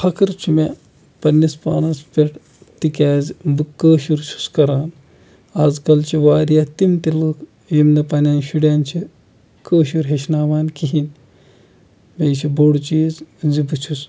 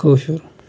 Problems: background sounds at intervals